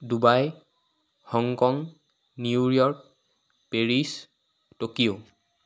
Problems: none marked